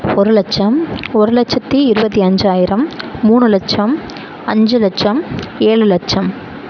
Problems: constant background noise